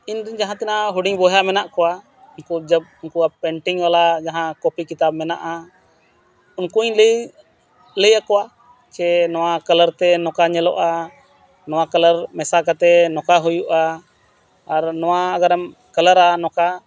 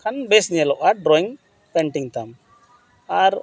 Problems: constant background noise